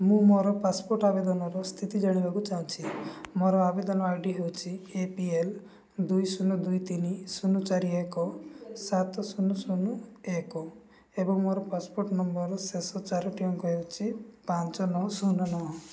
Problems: background sounds at intervals